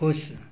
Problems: none marked